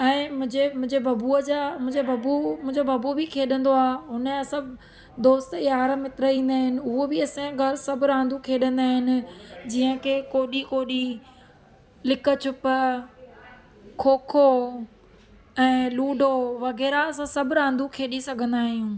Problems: constant background noise